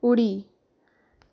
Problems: none marked